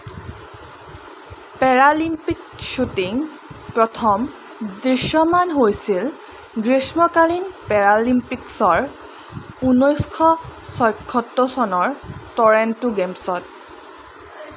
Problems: none marked